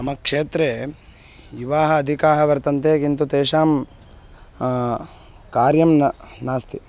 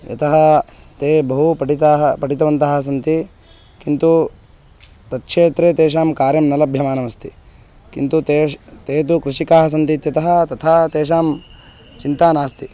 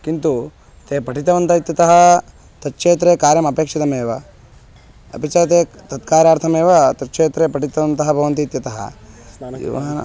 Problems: constant background noise